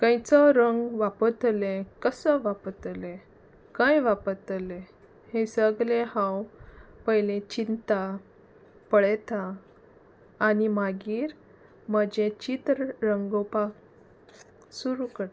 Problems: none marked